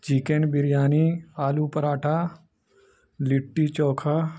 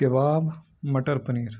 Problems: none marked